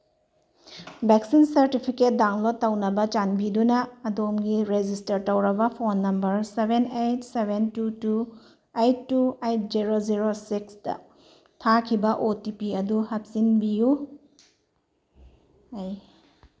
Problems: none marked